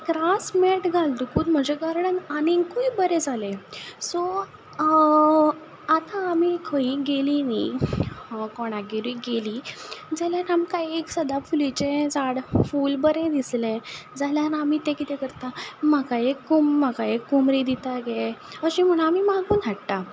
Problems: none marked